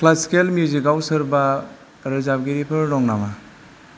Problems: constant background noise